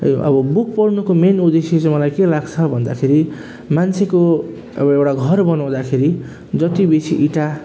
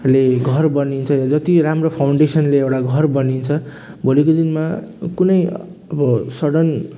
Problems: none marked